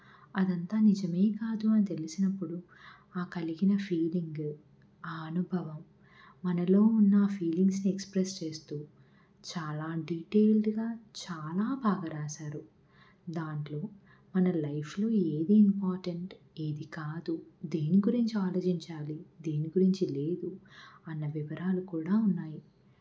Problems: none marked